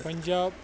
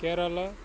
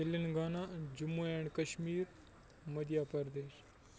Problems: constant background noise